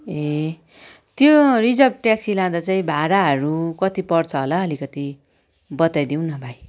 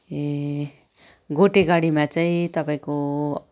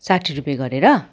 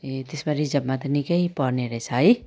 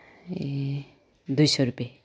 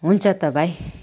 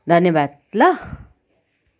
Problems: background sounds at intervals, background conversations at intervals